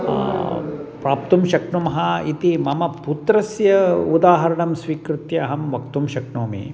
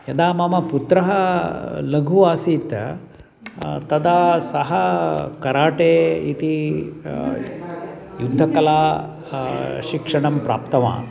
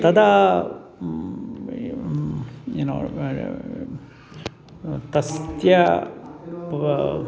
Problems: none marked